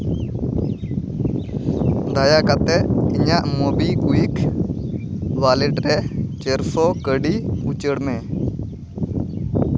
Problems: constant background noise